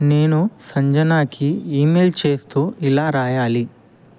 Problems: constant background noise